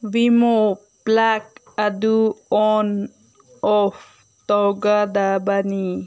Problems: none marked